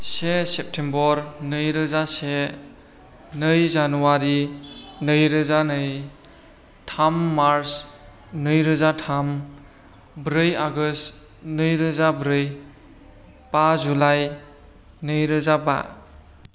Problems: none marked